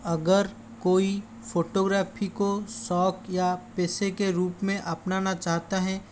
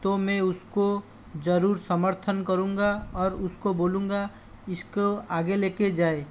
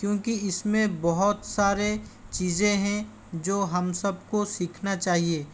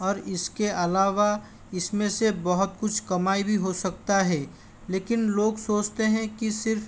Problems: constant background noise